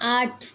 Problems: background sounds at intervals